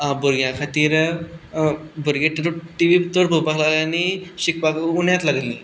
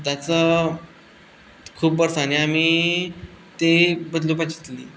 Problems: none marked